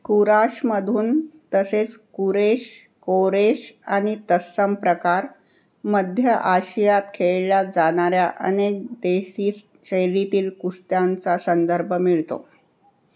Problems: none marked